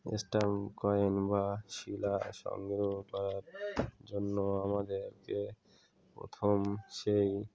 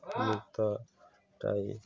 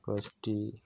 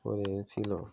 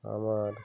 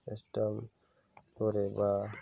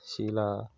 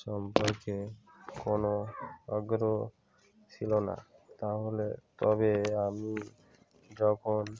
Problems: continuous background conversations